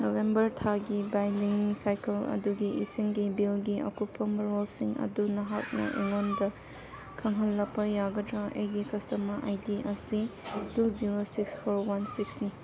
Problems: background sounds at intervals